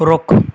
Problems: background sounds at intervals